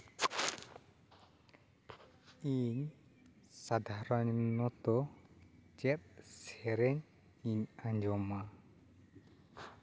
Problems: background sounds at intervals